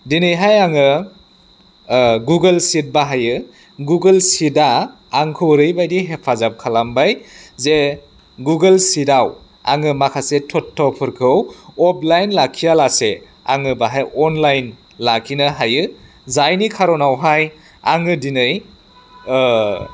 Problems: none marked